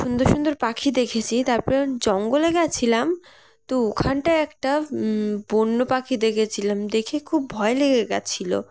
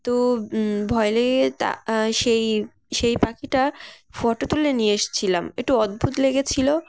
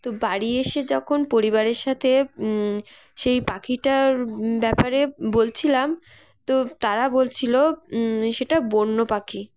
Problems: constant background noise, background conversations at intervals